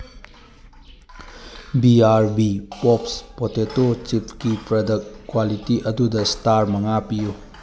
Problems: constant background noise